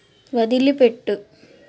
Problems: none marked